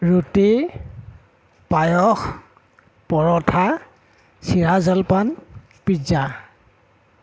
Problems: background sounds at intervals